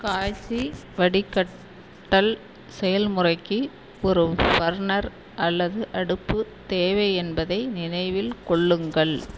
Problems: constant background noise